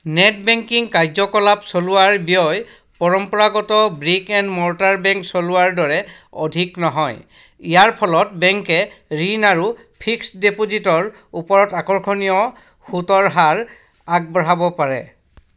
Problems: none marked